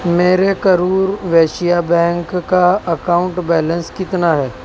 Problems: constant background noise